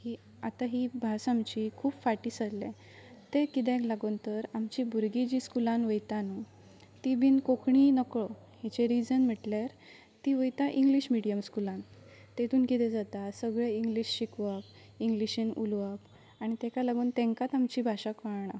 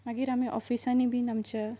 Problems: none marked